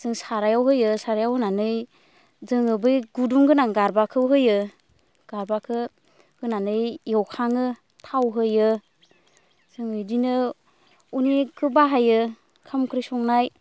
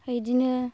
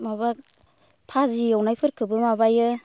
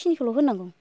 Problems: constant background noise